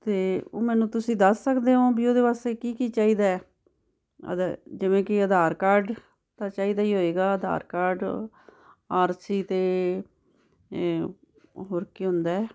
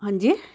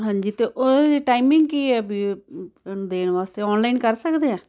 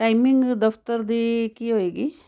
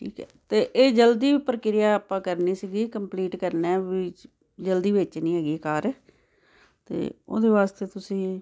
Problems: none marked